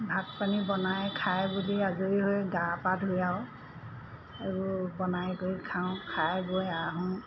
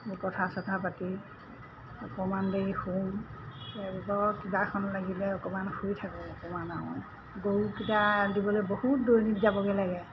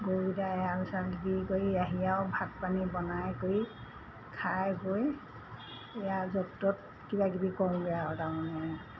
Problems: constant background noise